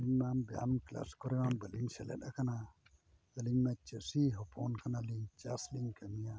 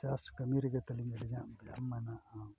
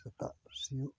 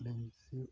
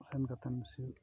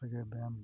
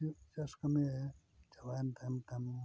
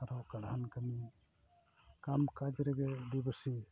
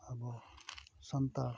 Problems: background sounds at intervals, low volume